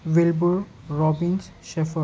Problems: constant background noise